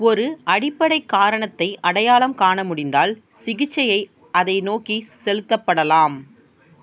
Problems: constant background noise